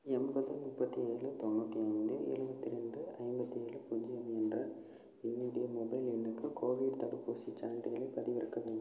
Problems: low volume